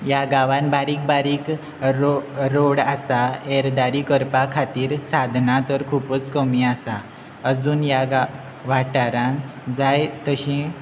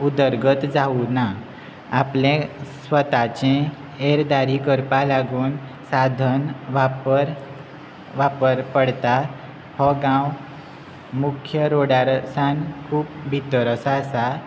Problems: constant background noise